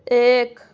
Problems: none marked